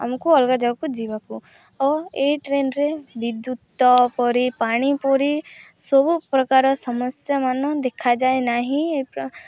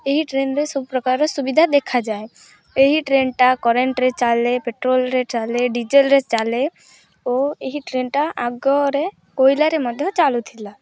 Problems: none marked